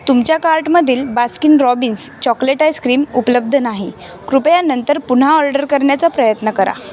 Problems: constant background noise, continuous background conversations